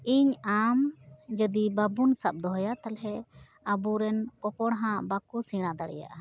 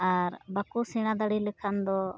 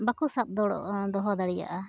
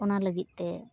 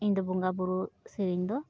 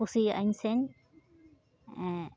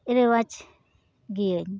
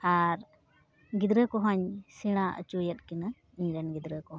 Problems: none marked